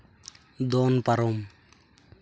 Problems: none marked